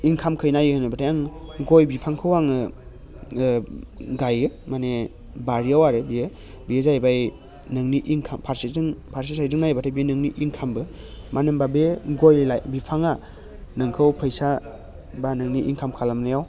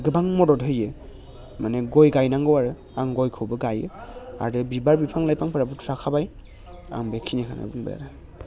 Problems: low volume